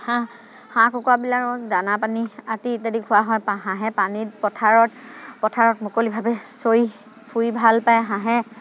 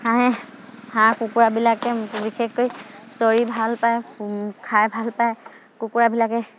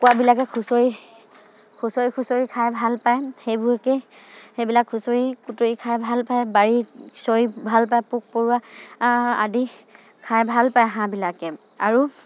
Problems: none marked